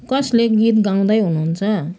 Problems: background sounds at intervals